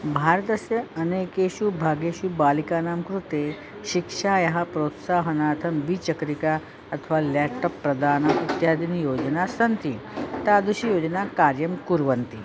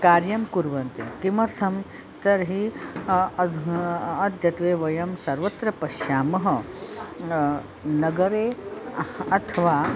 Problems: constant background noise, continuous background conversations